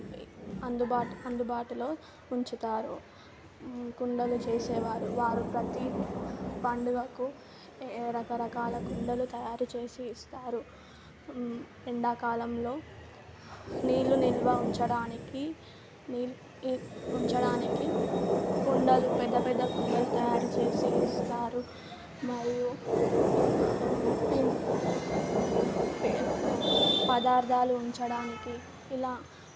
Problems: constant background noise